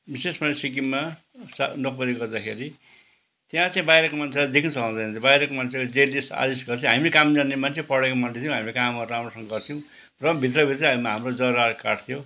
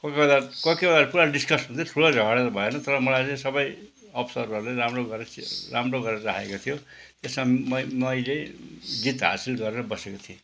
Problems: background sounds at intervals